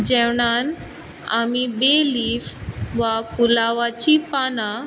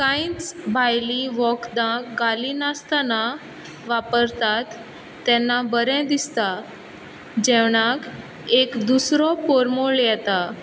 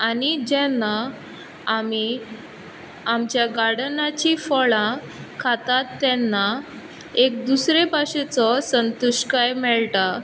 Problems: background sounds at intervals